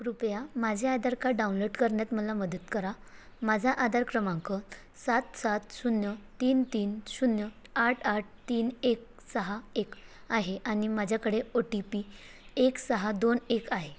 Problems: constant background noise